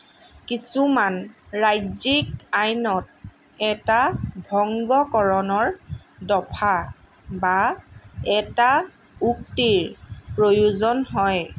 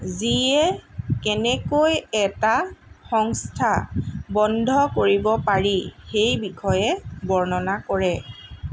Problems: constant background noise